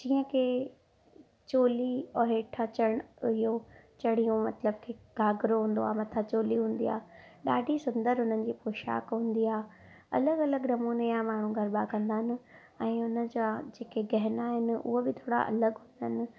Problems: none marked